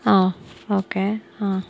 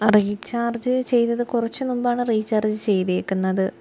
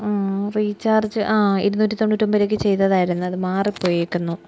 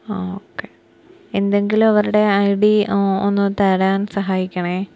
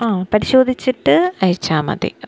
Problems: none marked